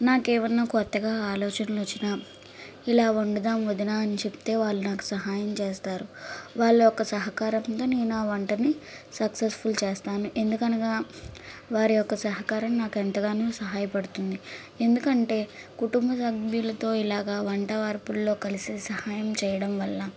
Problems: background sounds at intervals